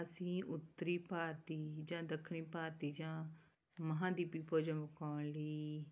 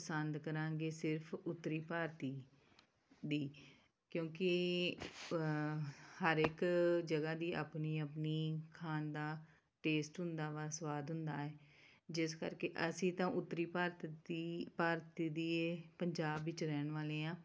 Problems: background sounds at intervals